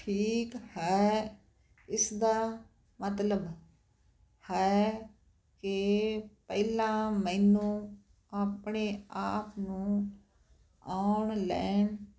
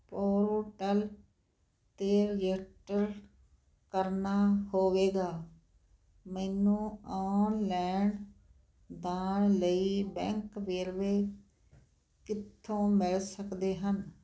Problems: none marked